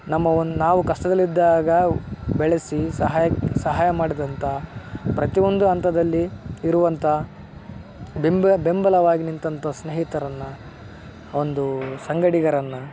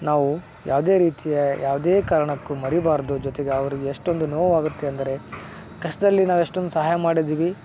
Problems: background sounds at intervals